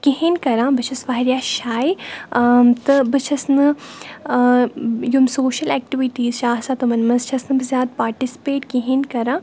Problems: none marked